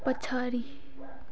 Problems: background sounds at intervals